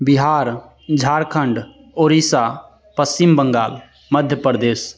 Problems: constant background noise